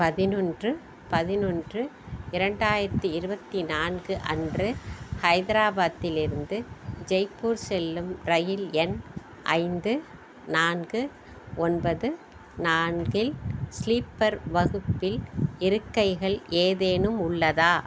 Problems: background sounds at intervals